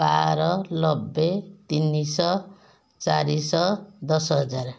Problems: none marked